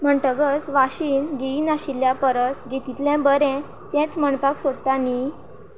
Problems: none marked